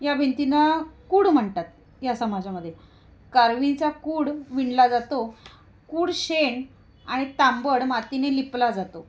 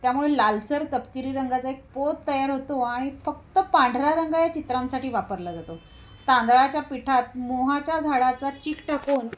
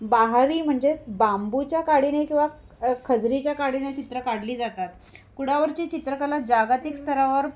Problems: constant background noise, background conversations at intervals